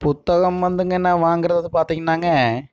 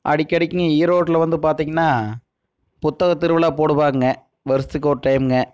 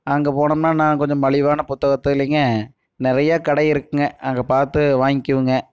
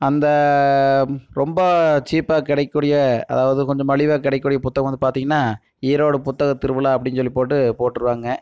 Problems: none marked